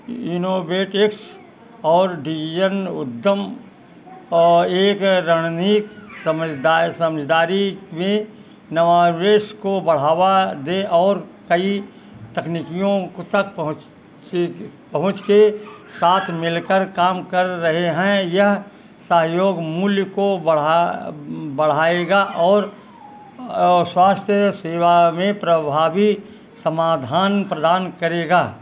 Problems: constant background noise